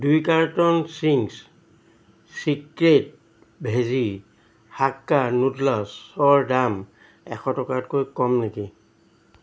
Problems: constant background noise